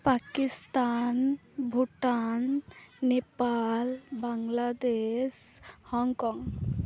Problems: continuous background conversations